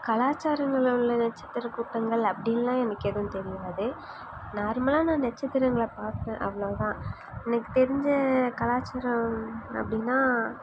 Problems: background sounds at intervals